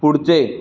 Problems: none marked